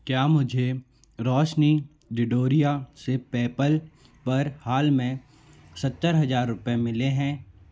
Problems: constant background noise